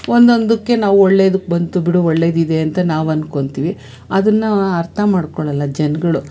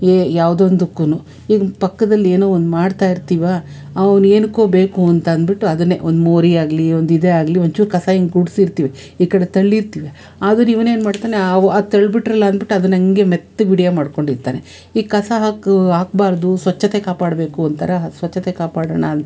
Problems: none marked